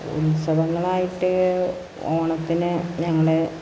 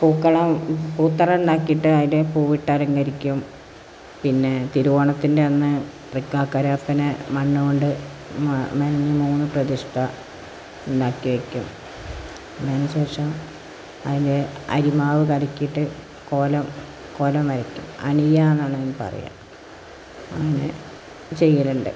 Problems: constant background noise